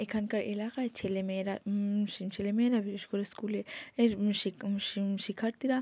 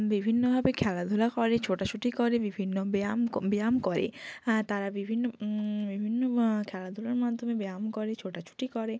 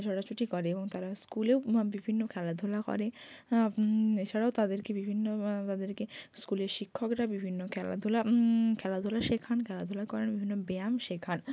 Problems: none marked